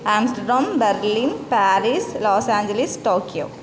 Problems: constant background noise